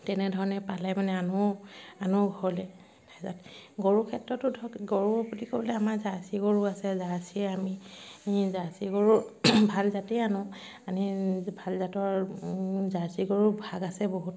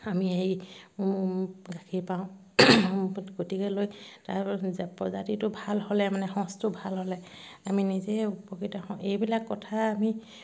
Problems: background sounds at intervals